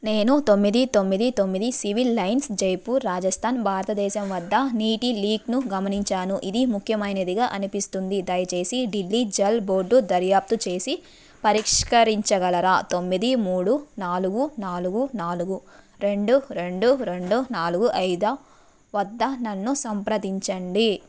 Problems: background sounds at intervals